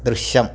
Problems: background sounds at intervals